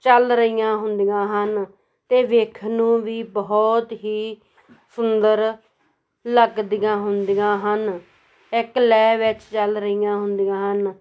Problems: background conversations at intervals